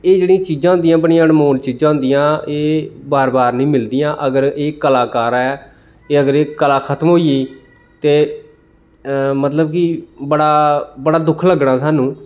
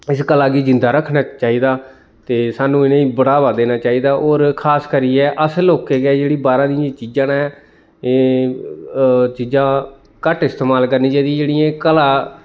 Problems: none marked